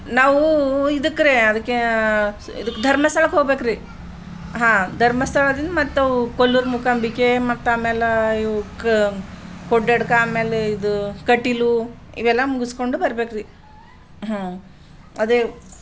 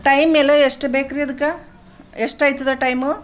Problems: background sounds at intervals